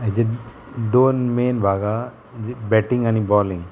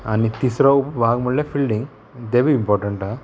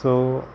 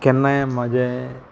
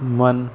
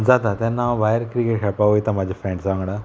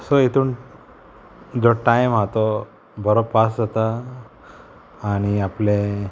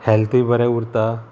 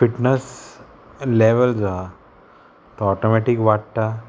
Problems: constant background noise